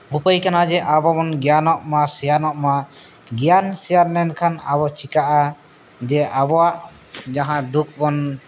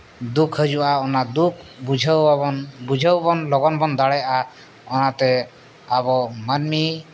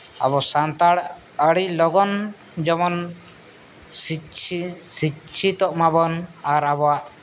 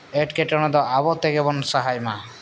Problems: background sounds at intervals